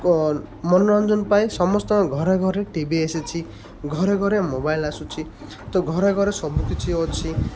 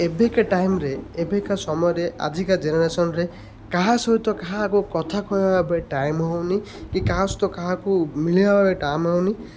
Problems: constant background noise